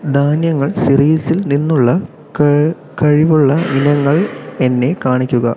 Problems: constant background noise